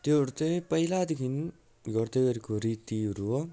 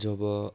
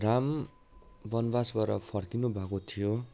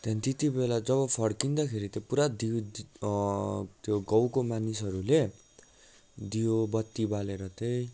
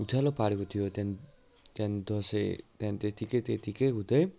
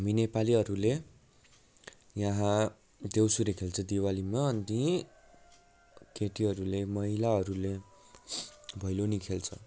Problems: background sounds at intervals